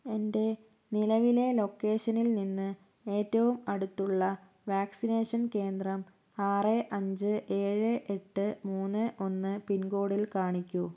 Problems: low volume